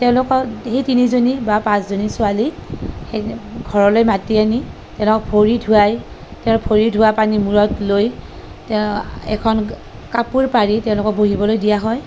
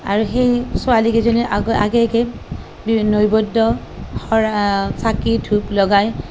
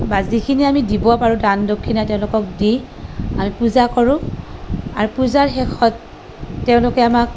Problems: none marked